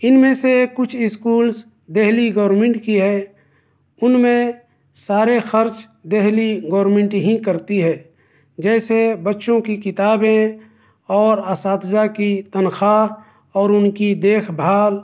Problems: none marked